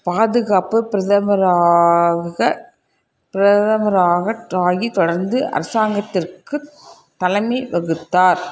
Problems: constant background noise